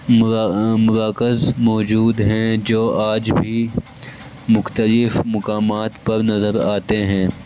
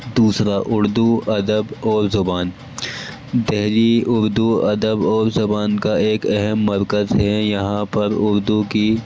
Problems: constant background noise